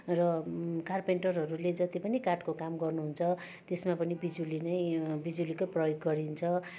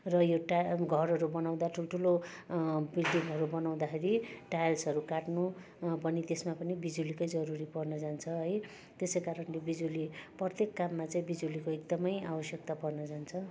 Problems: constant background noise